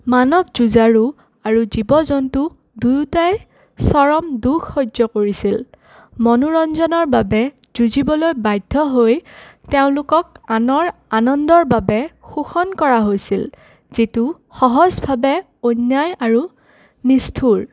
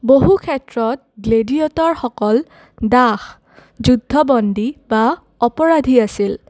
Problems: none marked